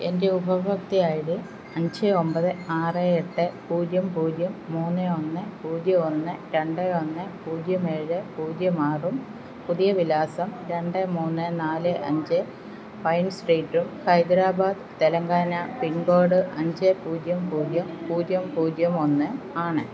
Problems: constant background noise